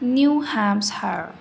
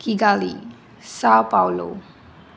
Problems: constant background noise, continuous background conversations